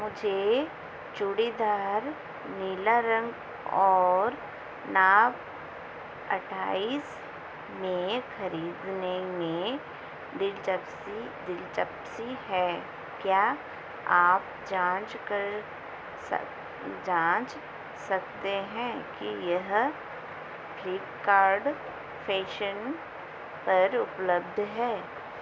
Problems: constant background noise